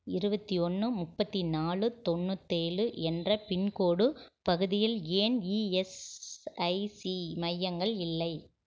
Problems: none marked